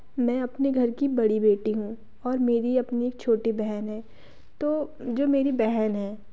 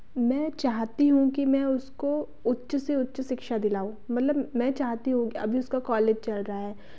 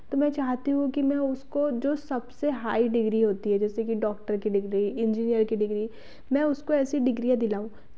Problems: none marked